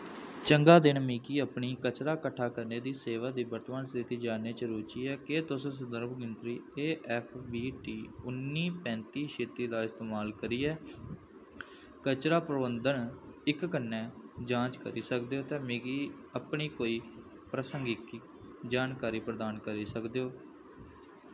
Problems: constant background noise